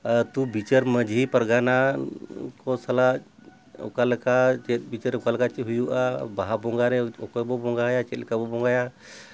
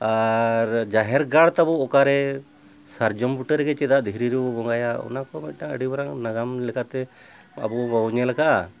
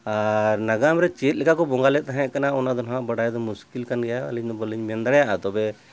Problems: none marked